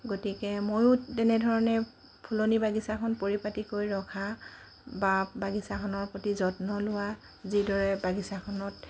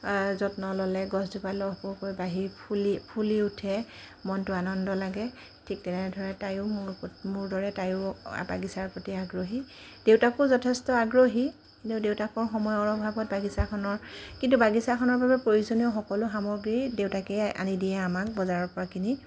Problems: constant background noise